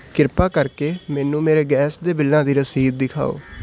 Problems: constant background noise